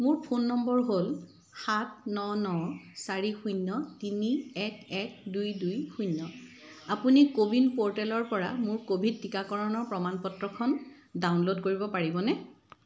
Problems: constant background noise